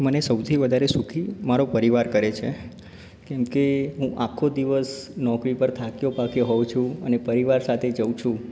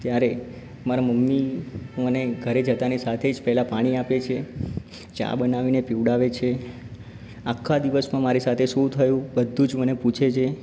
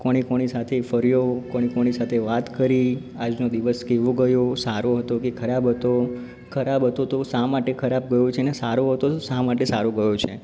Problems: background sounds at intervals